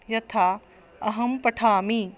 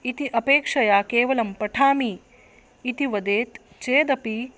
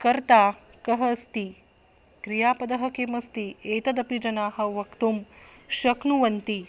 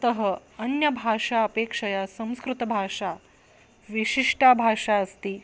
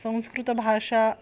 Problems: constant background noise